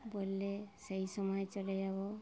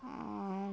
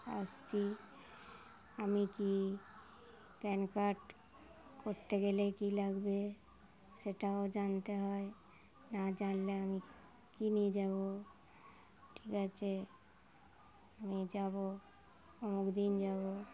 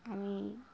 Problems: constant background noise